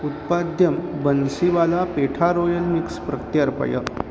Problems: constant background noise